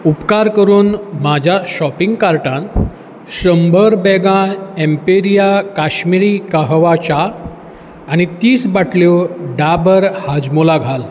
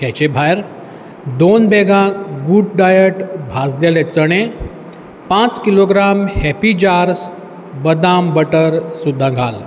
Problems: background sounds at intervals